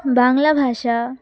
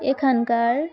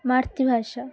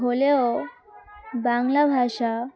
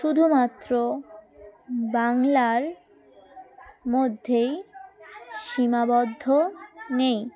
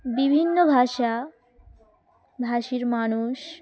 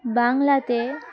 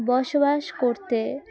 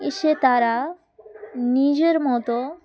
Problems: background sounds at intervals, continuous background conversations